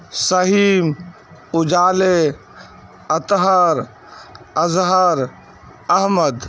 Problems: constant background noise